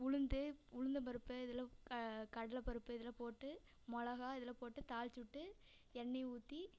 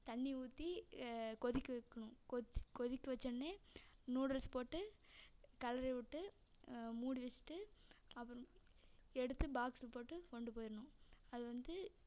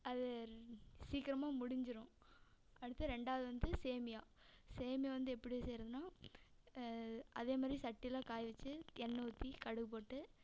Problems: none marked